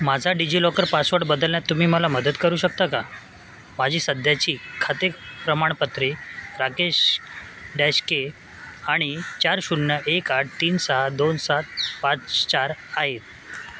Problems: constant background noise, background conversations at intervals